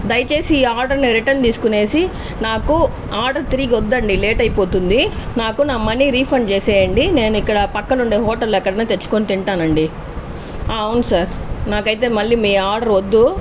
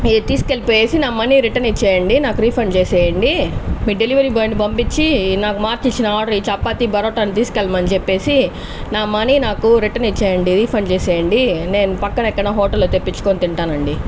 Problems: constant background noise